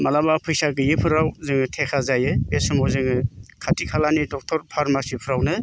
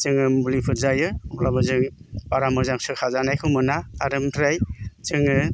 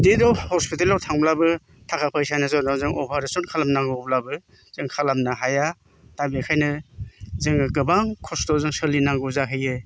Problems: constant background noise